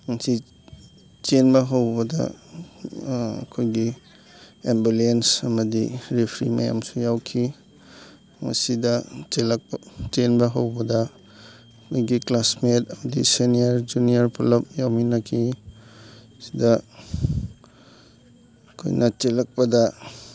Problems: background sounds at intervals, background conversations at intervals